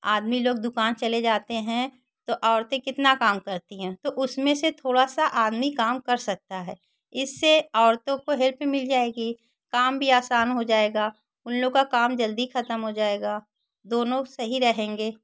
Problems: constant background noise